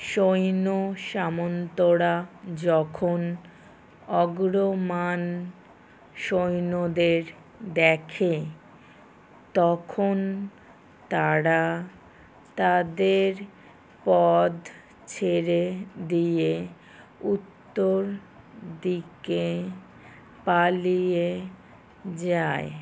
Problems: none marked